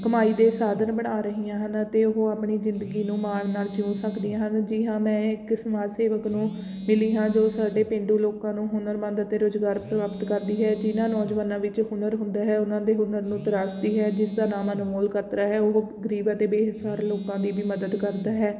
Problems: constant background noise